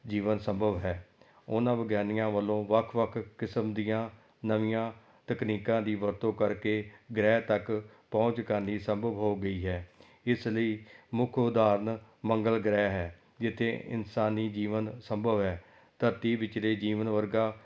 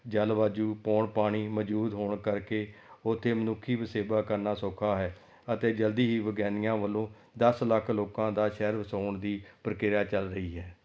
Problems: background sounds at intervals